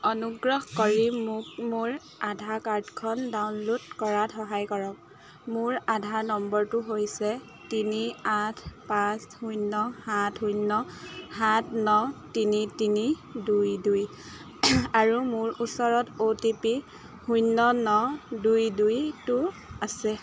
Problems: none marked